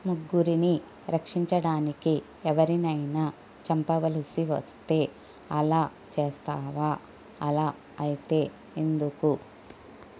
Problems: constant background noise, low volume